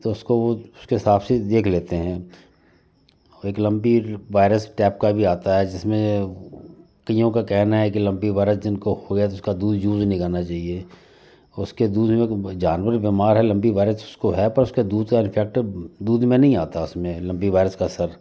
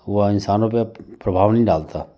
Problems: none marked